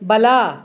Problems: none marked